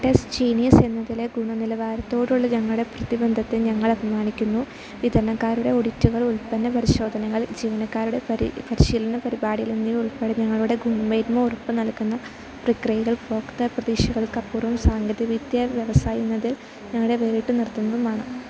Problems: constant background noise